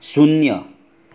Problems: none marked